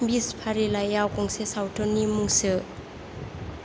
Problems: constant background noise